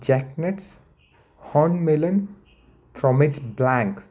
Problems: none marked